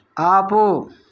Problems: none marked